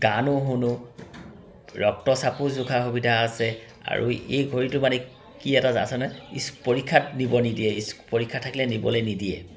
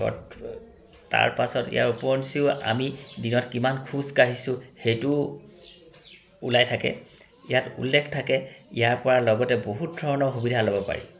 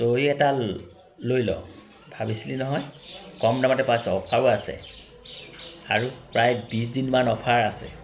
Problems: constant background noise, continuous background conversations